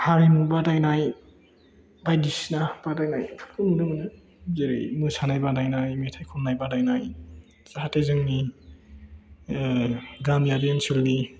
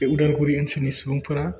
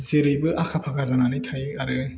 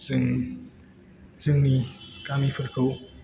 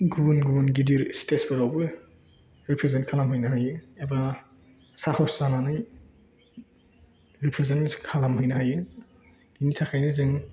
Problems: background conversations at intervals